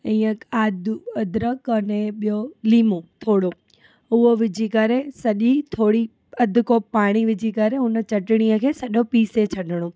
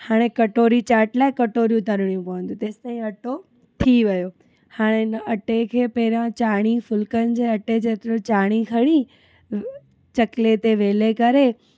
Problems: background sounds at intervals